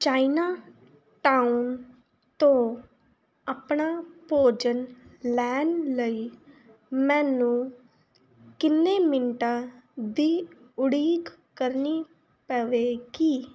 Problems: none marked